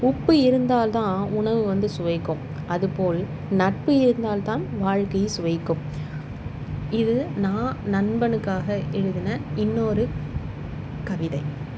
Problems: constant background noise